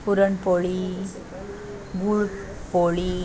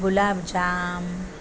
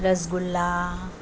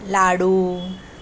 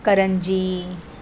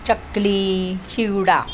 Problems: constant background noise